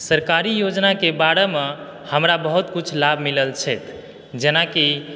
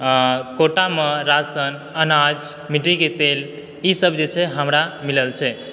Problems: background sounds at intervals